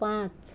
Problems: none marked